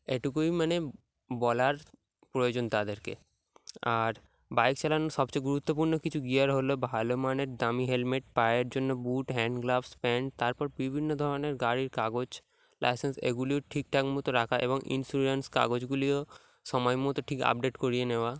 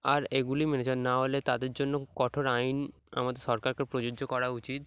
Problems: background sounds at intervals